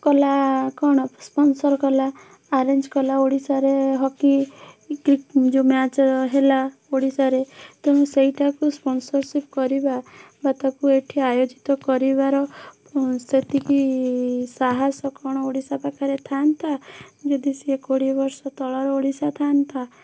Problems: none marked